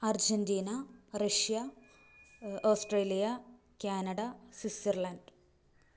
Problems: none marked